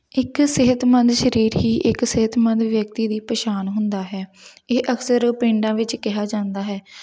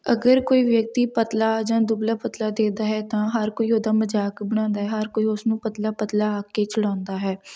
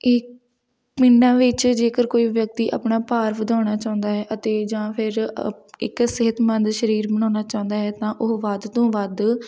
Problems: background sounds at intervals